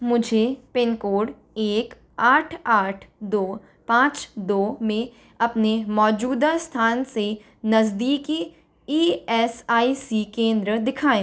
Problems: none marked